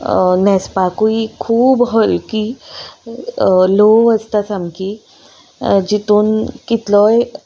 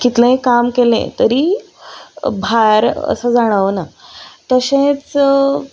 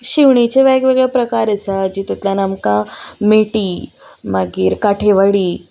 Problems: none marked